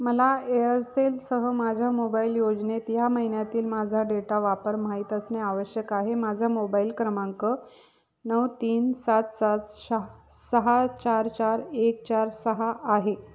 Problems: background sounds at intervals